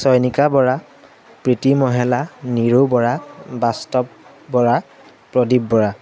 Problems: constant background noise